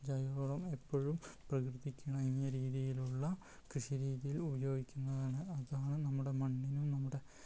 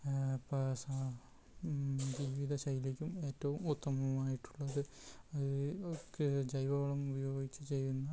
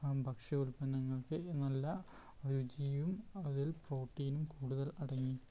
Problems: background sounds at intervals